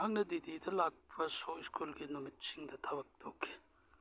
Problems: none marked